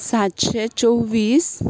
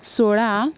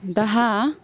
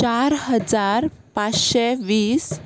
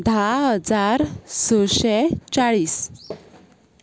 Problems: constant background noise